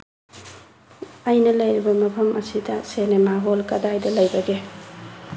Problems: background sounds at intervals